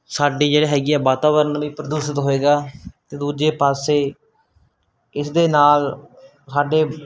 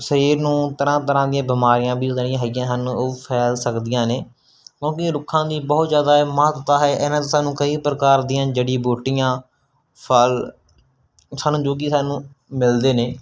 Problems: none marked